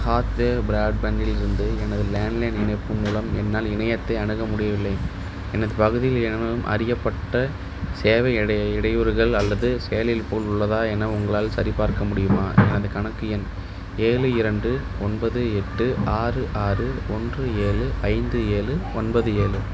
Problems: background sounds at intervals